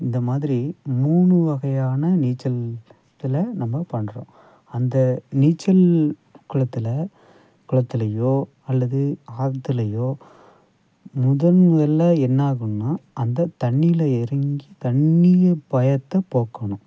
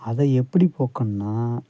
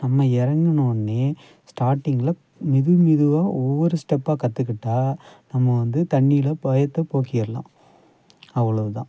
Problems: background sounds at intervals